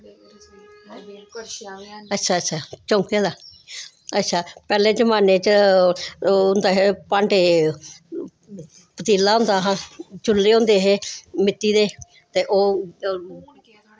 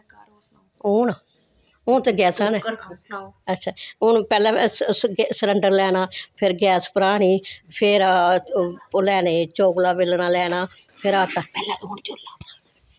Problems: none marked